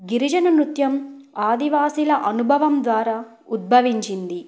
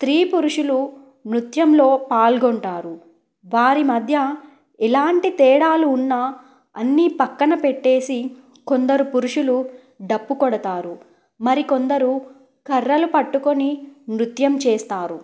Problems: none marked